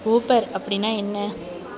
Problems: none marked